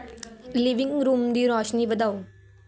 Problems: background conversations at intervals